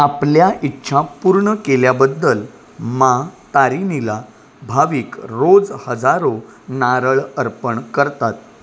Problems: none marked